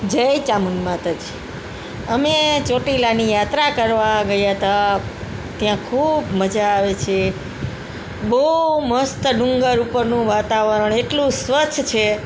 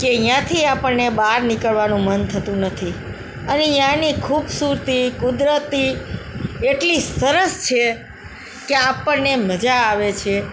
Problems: background sounds at intervals